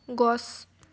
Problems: background sounds at intervals